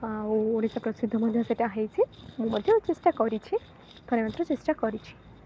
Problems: constant background noise